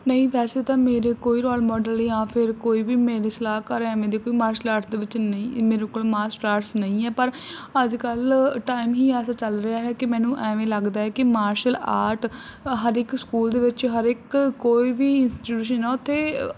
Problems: none marked